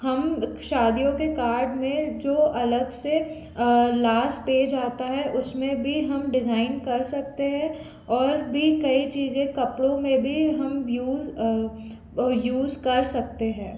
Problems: constant background noise